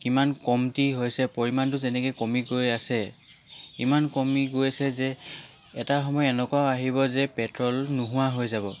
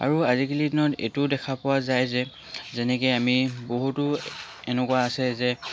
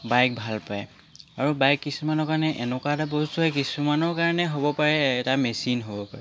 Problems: constant background noise